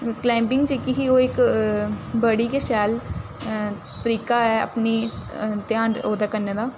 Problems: none marked